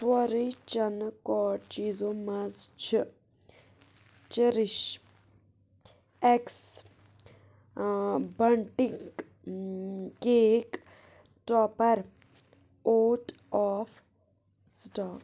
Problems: none marked